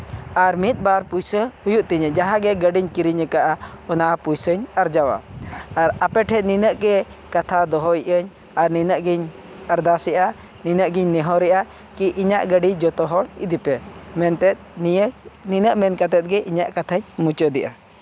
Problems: background sounds at intervals